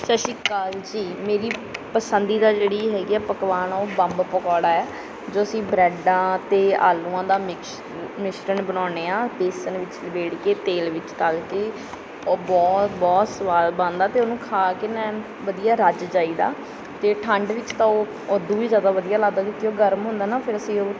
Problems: background sounds at intervals